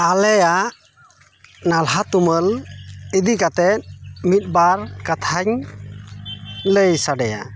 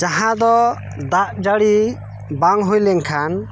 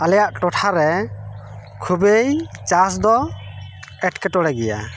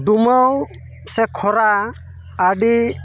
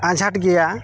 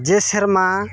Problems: background sounds at intervals, background conversations at intervals